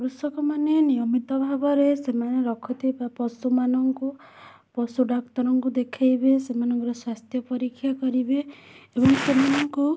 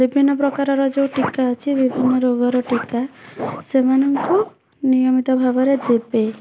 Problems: none marked